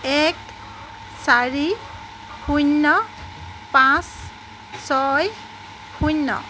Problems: constant background noise, background conversations at intervals